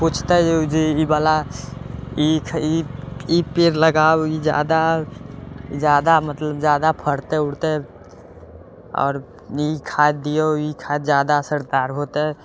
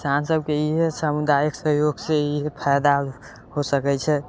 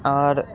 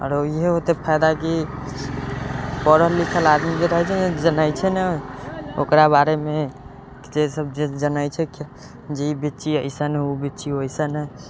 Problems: constant background noise